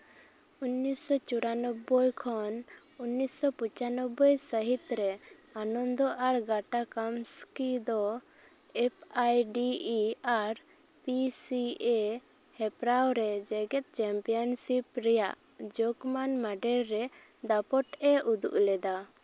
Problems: none marked